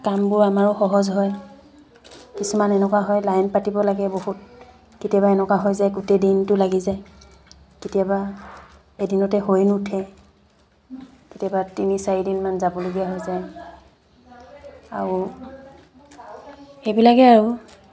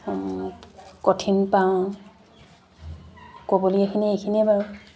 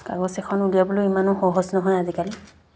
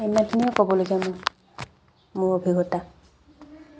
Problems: constant background noise